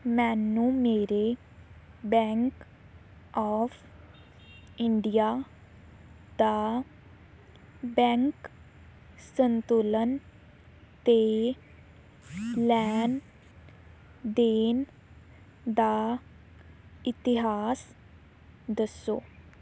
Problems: none marked